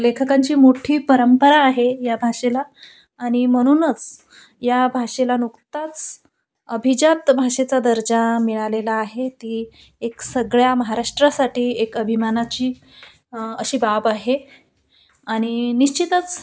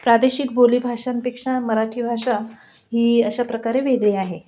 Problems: none marked